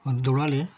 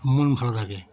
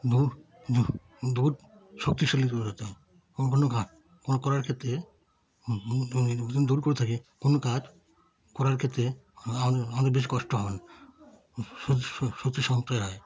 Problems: background conversations at intervals